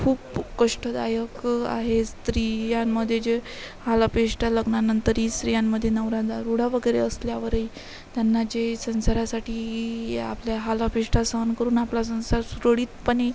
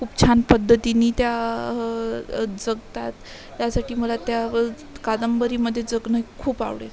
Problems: constant background noise, continuous background conversations